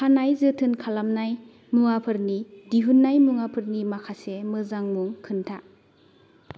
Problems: none marked